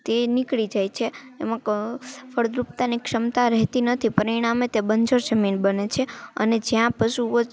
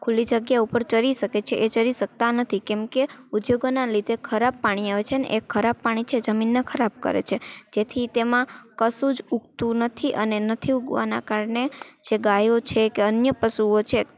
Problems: none marked